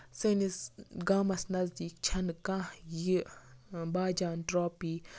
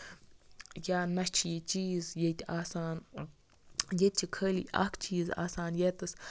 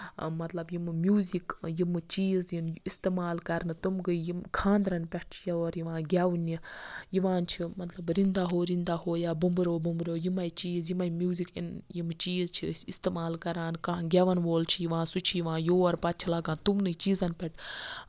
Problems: none marked